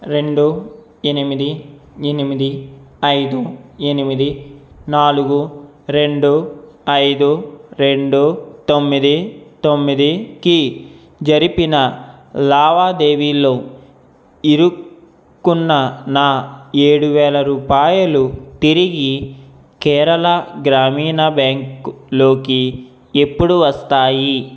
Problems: none marked